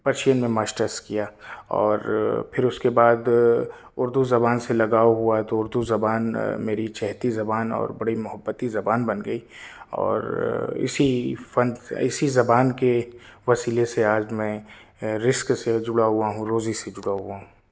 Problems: none marked